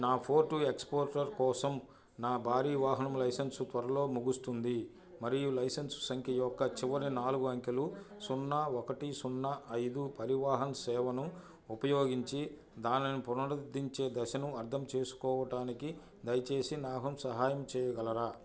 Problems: background conversations at intervals